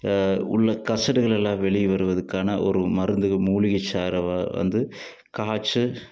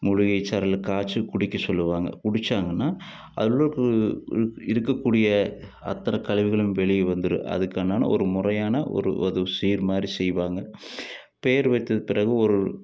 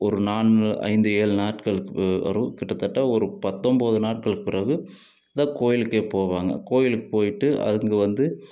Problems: none marked